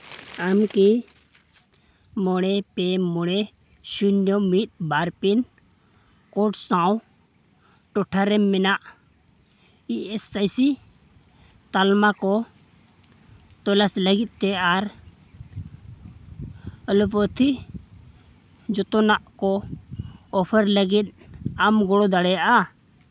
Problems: background sounds at intervals